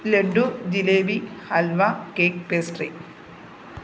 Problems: background sounds at intervals